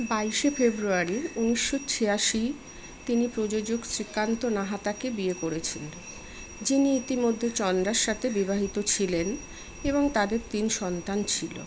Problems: constant background noise